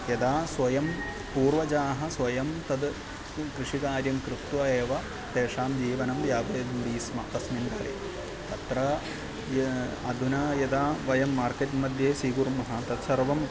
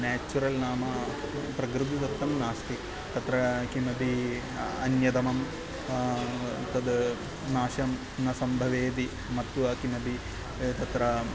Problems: background sounds at intervals